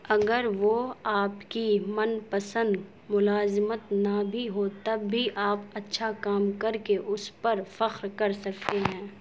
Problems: constant background noise